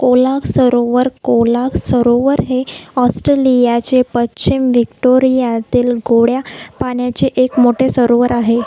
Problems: none marked